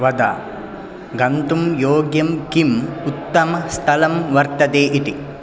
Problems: none marked